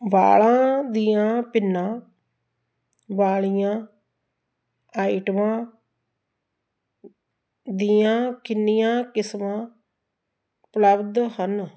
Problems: none marked